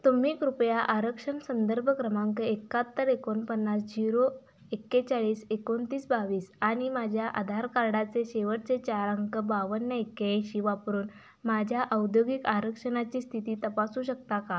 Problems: constant background noise